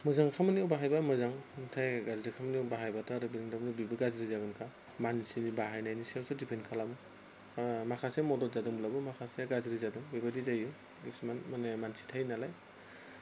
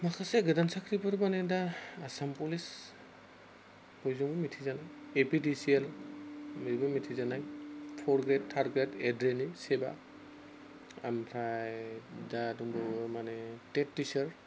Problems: constant background noise